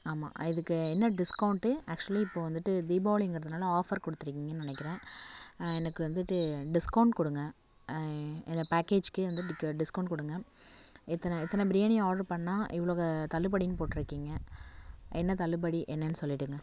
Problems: none marked